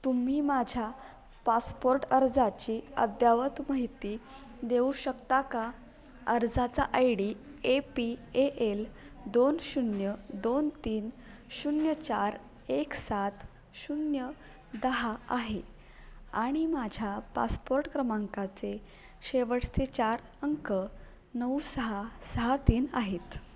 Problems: none marked